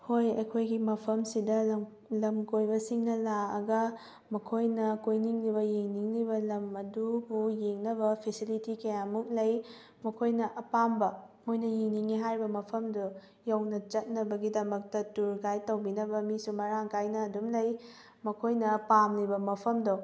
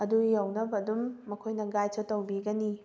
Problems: background sounds at intervals